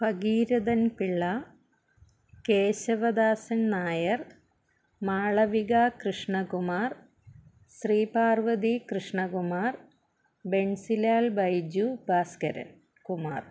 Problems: none marked